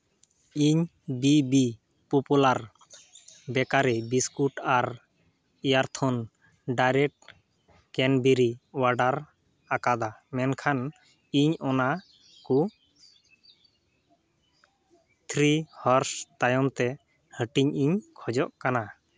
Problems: none marked